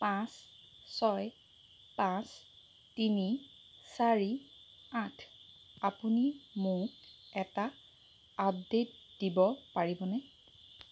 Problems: constant background noise